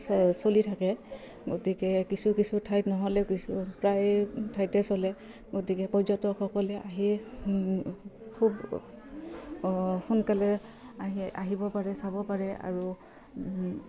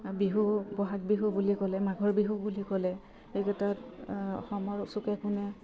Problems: background sounds at intervals, low volume